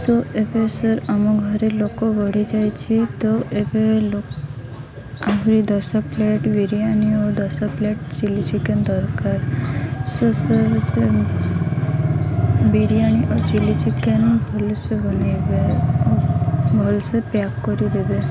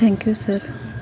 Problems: constant background noise